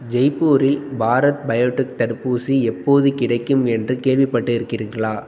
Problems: none marked